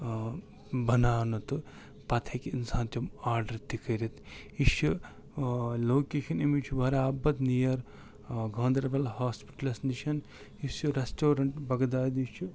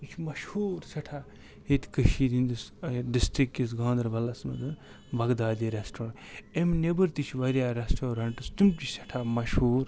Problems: constant background noise